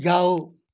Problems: constant background noise